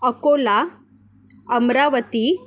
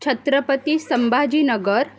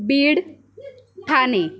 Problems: continuous background conversations